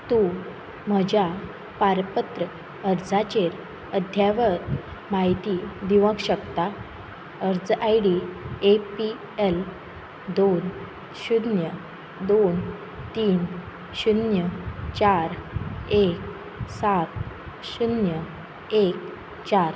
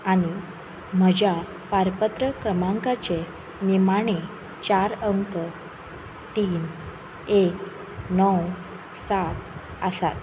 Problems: constant background noise